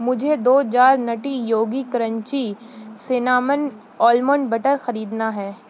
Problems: constant background noise